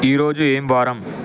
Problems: constant background noise